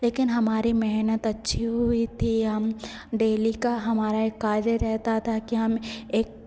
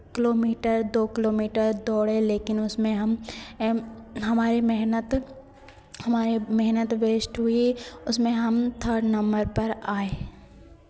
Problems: none marked